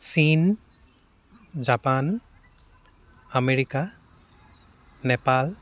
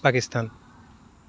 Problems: none marked